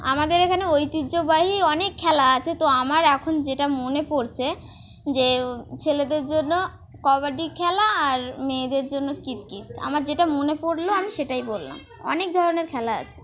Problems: none marked